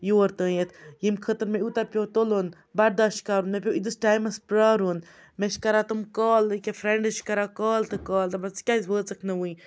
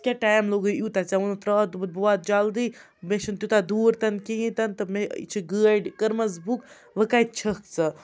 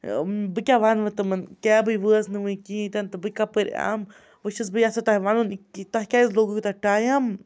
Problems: background sounds at intervals, background conversations at intervals